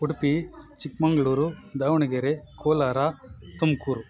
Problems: constant background noise